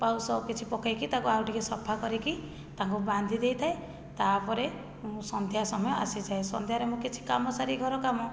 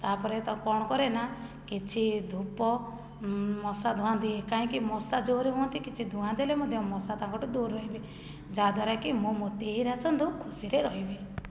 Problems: low volume